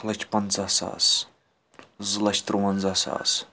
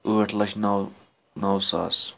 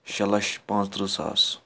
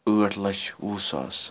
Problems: none marked